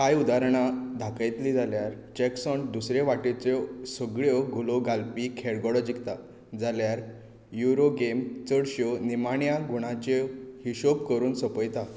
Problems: background sounds at intervals